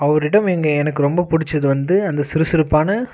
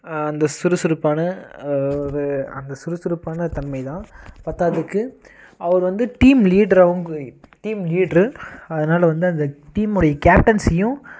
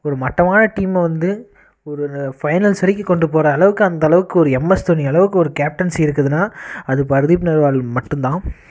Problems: constant background noise